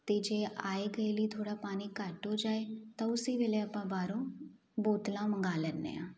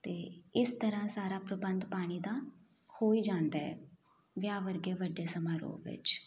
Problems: none marked